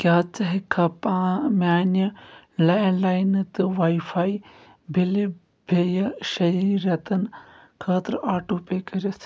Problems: background sounds at intervals